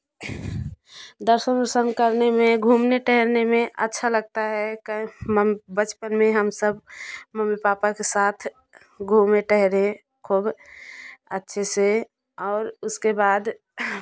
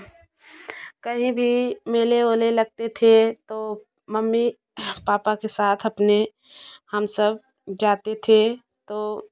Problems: background sounds at intervals